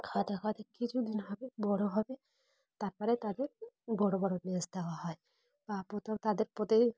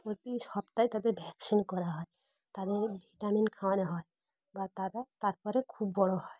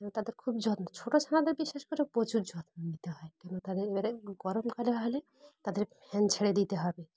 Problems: constant background noise, background conversations at intervals